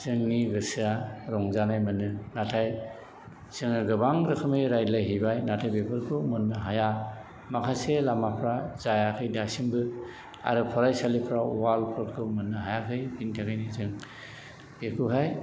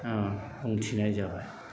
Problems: constant background noise